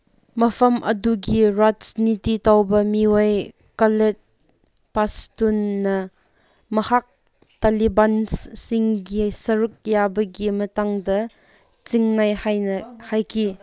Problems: none marked